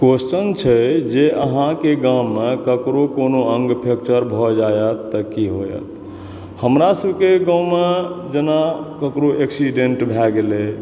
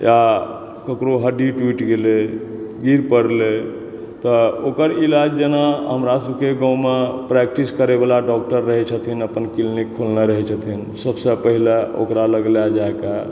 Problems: background sounds at intervals